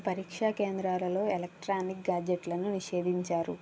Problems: none marked